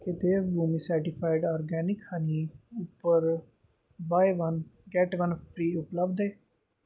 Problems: background sounds at intervals